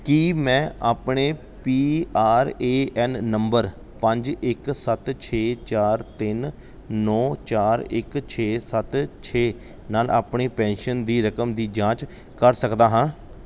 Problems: none marked